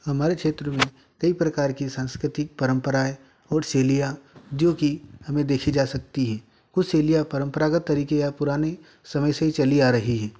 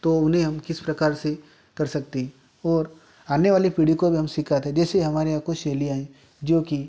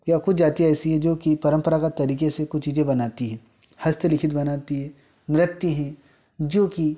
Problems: constant background noise